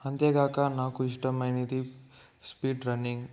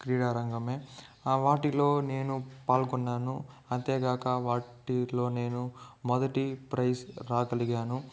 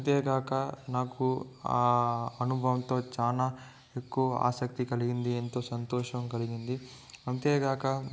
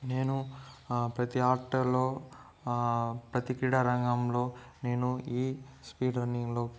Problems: background sounds at intervals, low volume